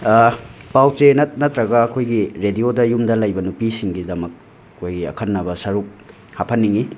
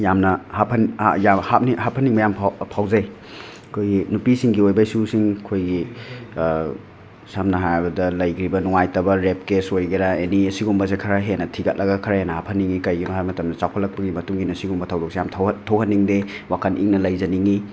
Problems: constant background noise, background conversations at intervals